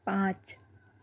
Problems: constant background noise